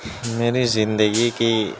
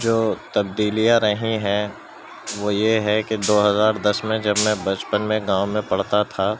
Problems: constant background noise, background conversations at intervals